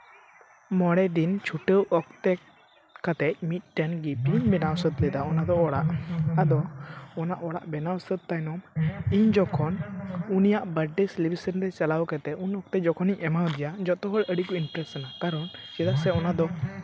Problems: continuous background conversations